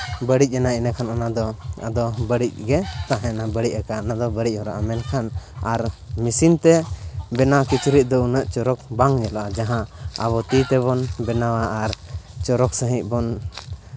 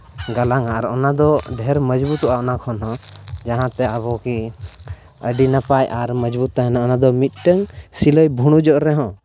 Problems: constant background noise